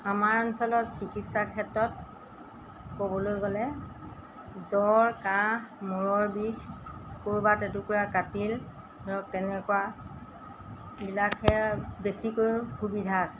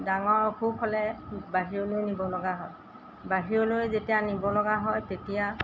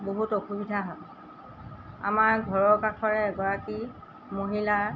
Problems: background sounds at intervals